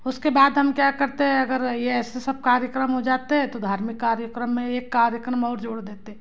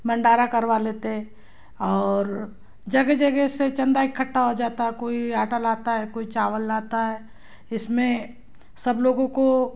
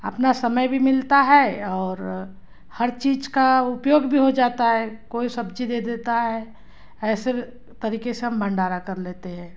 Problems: background sounds at intervals